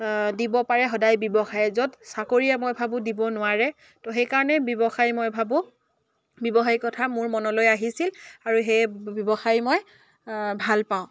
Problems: none marked